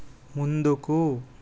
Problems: constant background noise